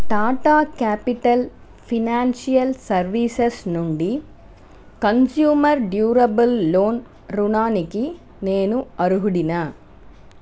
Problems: none marked